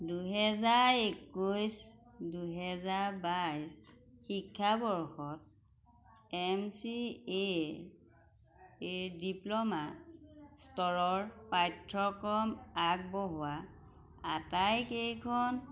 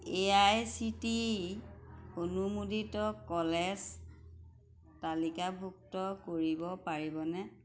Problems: background sounds at intervals